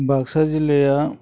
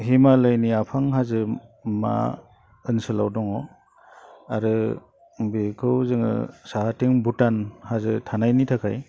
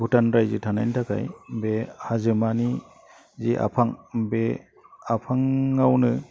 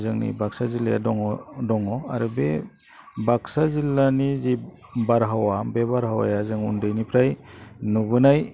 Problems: none marked